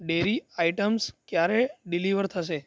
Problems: none marked